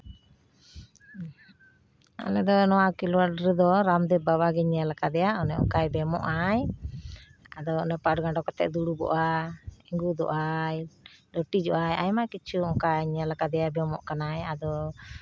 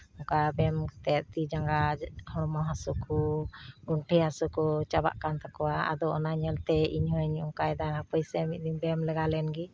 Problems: background sounds at intervals